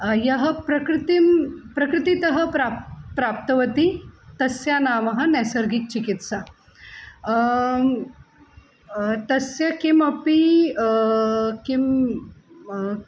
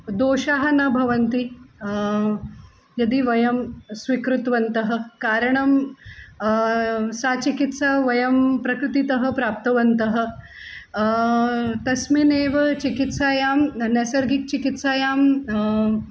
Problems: constant background noise